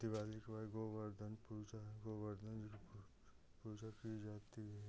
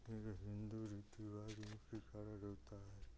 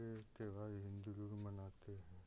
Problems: low volume